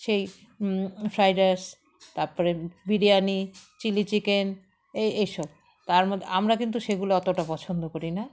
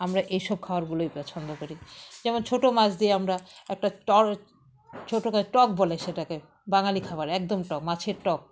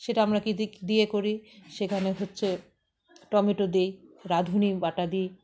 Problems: background sounds at intervals, background conversations at intervals